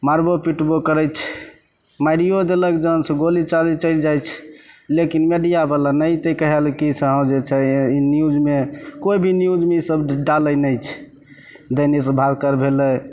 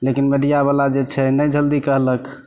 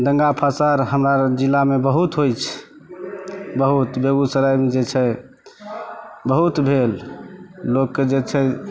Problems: none marked